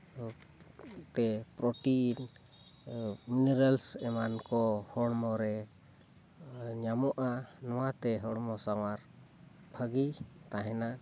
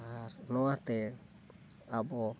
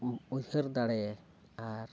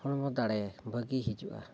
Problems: constant background noise